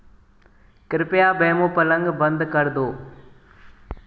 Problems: echo